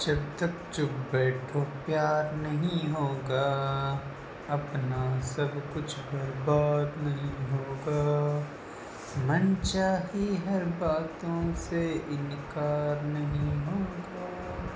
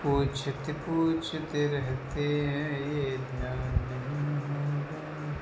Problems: constant background noise